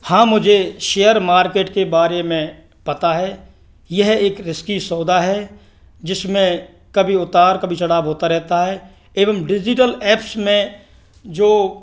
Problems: none marked